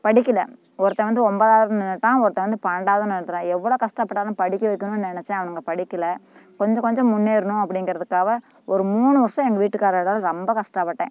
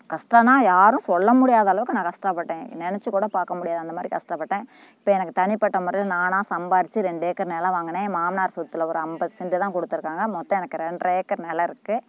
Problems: constant background noise